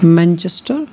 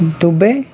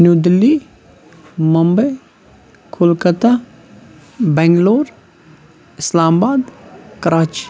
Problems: constant background noise